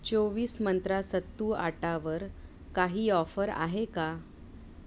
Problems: background sounds at intervals